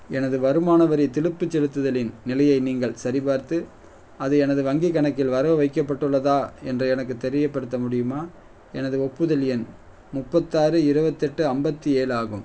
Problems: none marked